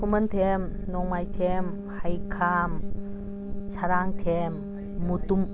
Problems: constant background noise